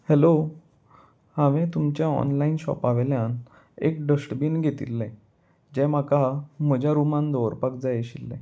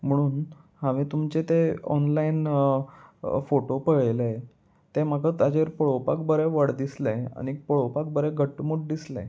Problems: none marked